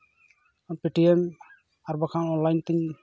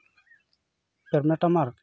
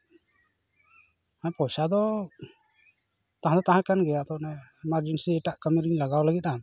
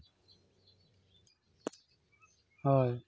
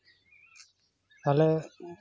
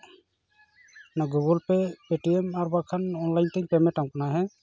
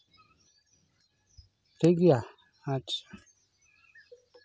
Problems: none marked